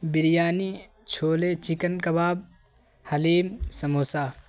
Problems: constant background noise